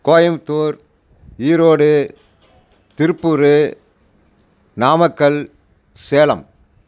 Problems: constant background noise